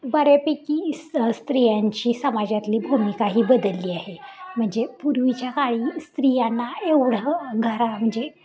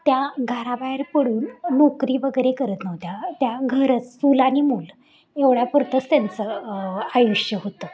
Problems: continuous background conversations